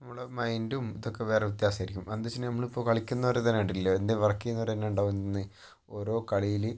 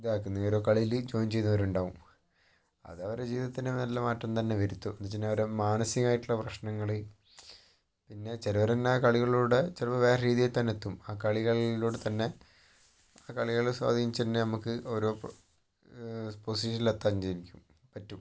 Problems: low volume